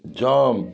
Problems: background sounds at intervals